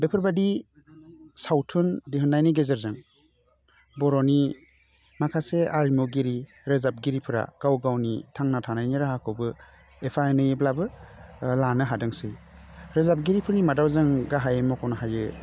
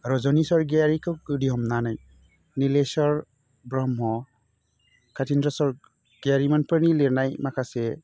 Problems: constant background noise